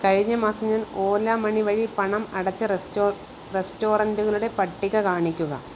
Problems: none marked